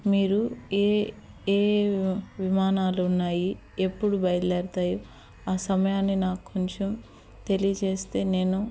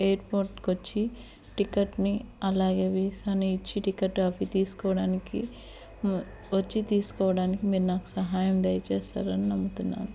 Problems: background sounds at intervals